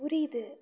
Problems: low volume